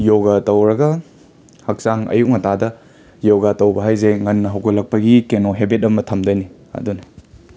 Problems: background sounds at intervals, background conversations at intervals